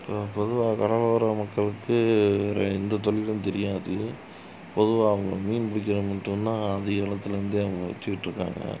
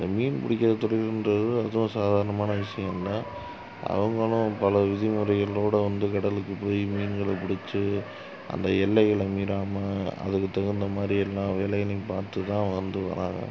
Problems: low volume